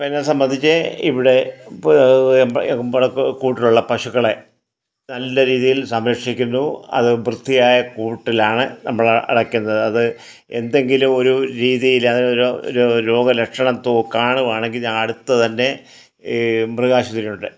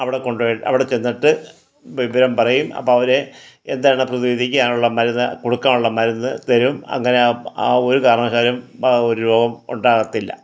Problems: none marked